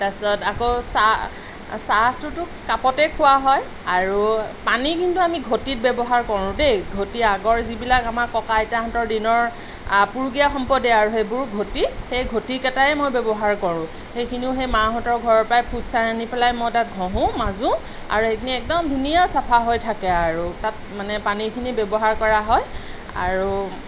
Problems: constant background noise